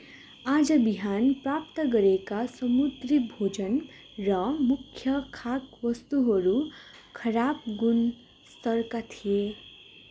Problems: constant background noise